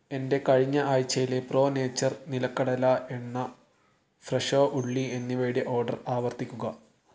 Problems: none marked